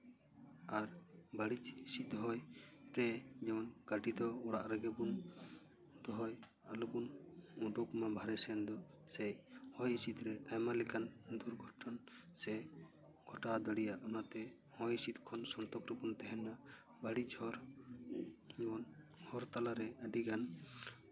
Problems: background sounds at intervals